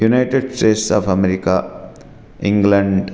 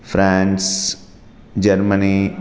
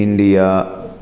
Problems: none marked